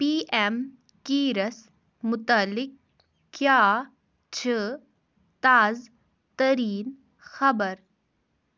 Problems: none marked